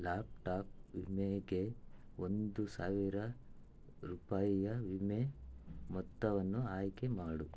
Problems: low volume